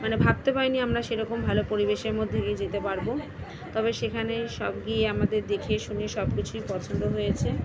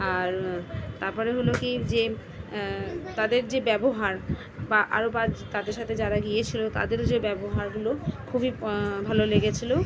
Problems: constant background noise, continuous background conversations